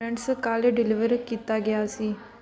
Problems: background conversations at intervals